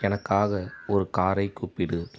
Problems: background sounds at intervals